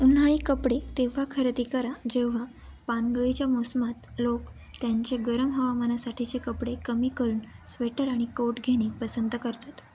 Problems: constant background noise, continuous background conversations